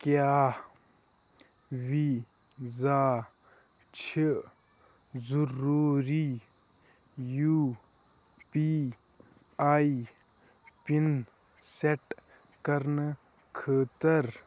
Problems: constant background noise